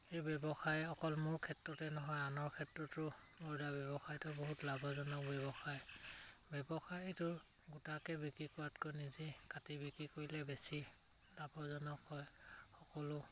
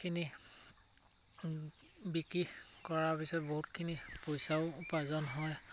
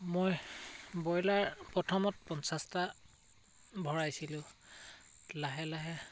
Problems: none marked